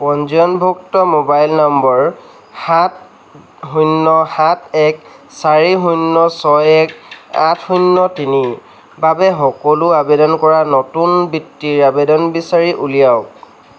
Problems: background sounds at intervals